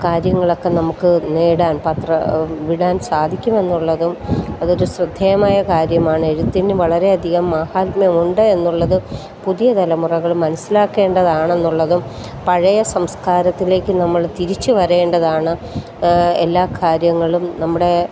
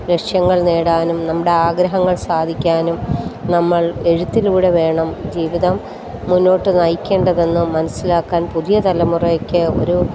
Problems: constant background noise